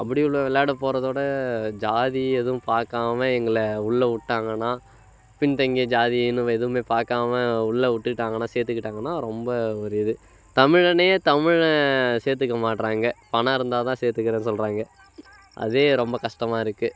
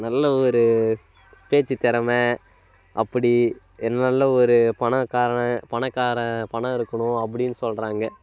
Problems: constant background noise